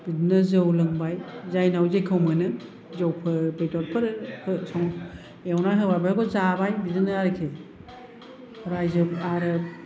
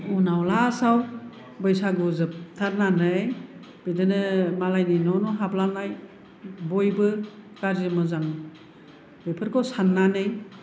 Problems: none marked